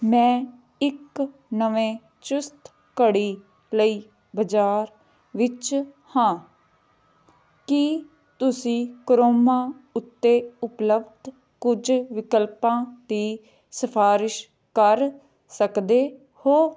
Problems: none marked